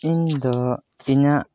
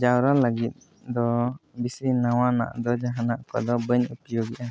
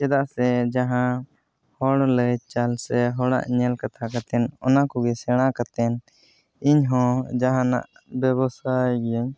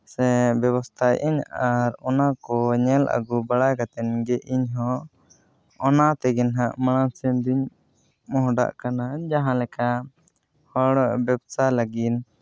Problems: background conversations at intervals